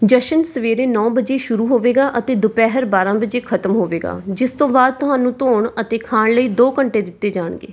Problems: background sounds at intervals